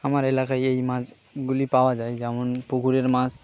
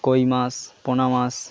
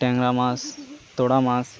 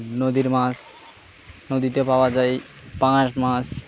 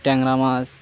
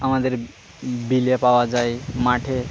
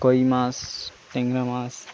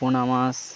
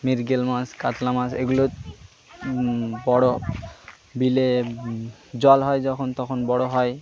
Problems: constant background noise